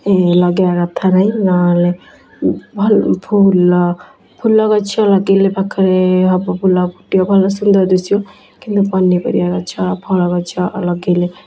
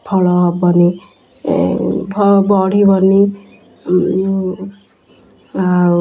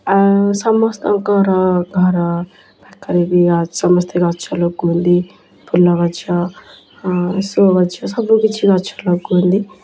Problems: constant background noise